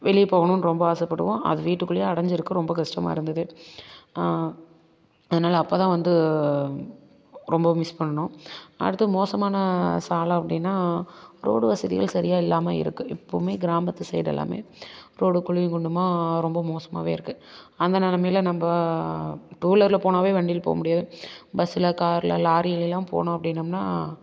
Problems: constant background noise